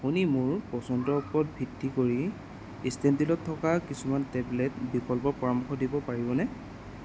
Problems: constant background noise